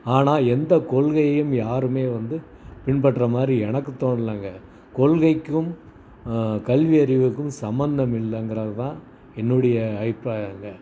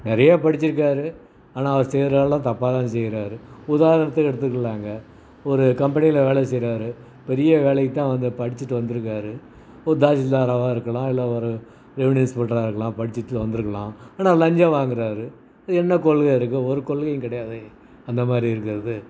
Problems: none marked